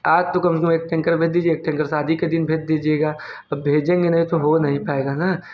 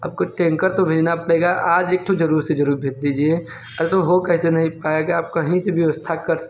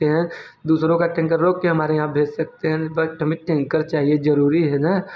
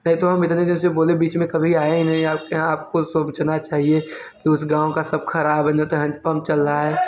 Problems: constant background noise, background conversations at intervals